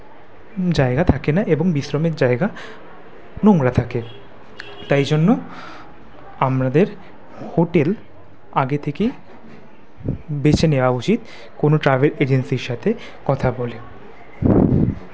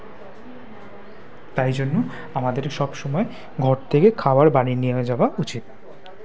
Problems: background conversations at intervals